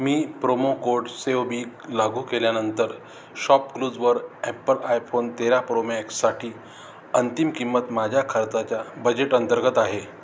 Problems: constant background noise